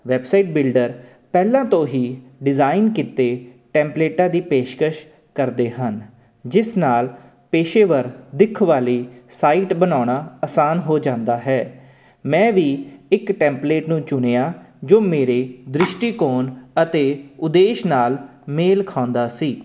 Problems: constant background noise